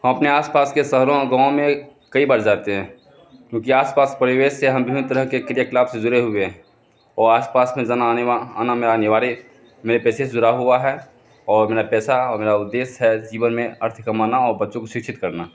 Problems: constant background noise, background conversations at intervals